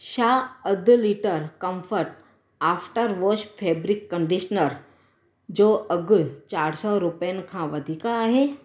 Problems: constant background noise, echo